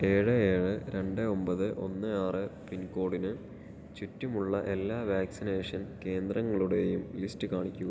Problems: low volume